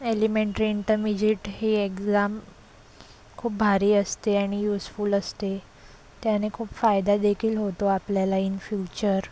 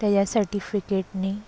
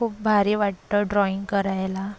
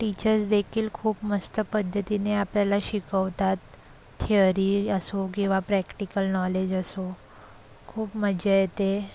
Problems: constant background noise, low volume